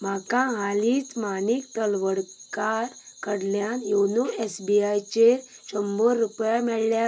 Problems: background sounds at intervals